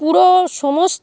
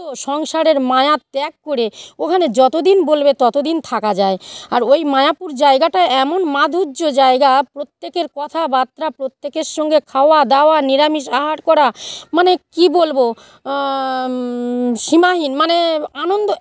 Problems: none marked